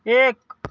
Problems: none marked